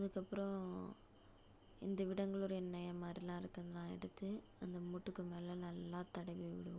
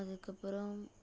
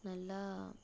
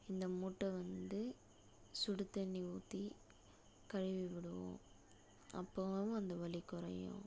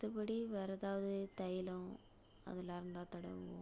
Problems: low volume